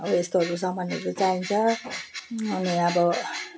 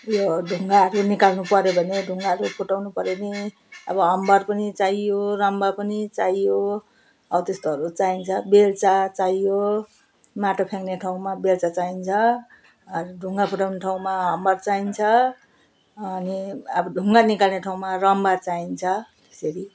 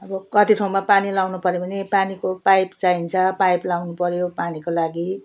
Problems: background sounds at intervals